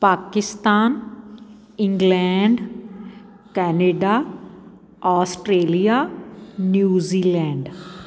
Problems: background sounds at intervals